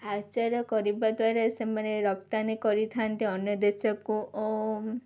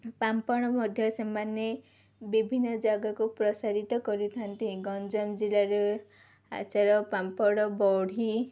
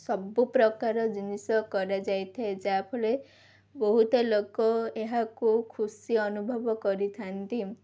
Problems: none marked